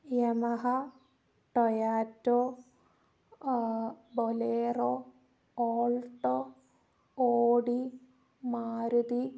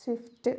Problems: low volume